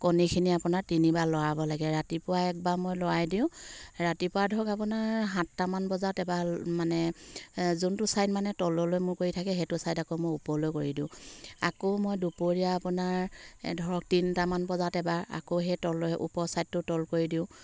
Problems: none marked